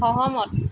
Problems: constant background noise